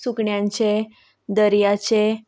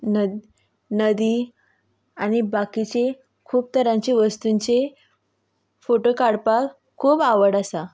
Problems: constant background noise